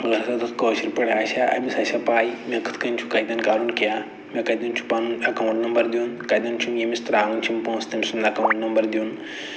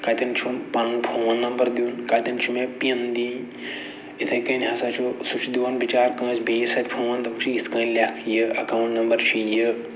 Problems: none marked